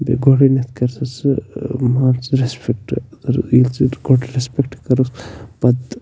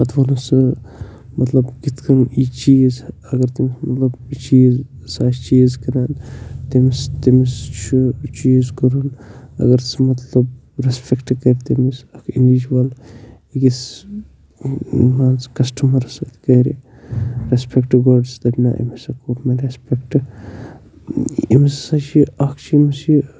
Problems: constant background noise, low volume